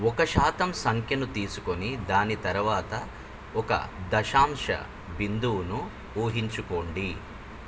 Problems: constant background noise